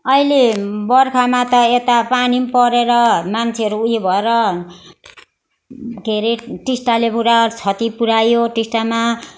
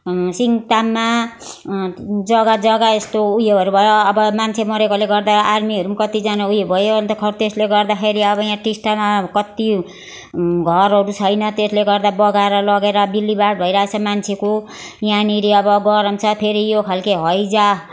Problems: continuous background conversations